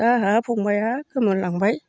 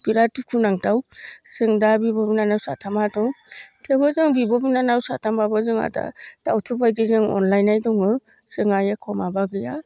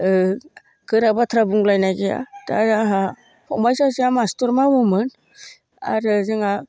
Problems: none marked